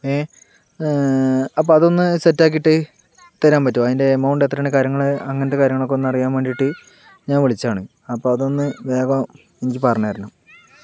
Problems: background conversations at intervals